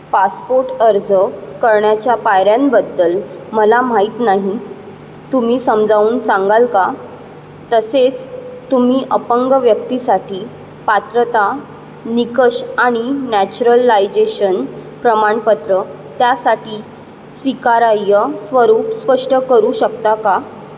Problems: none marked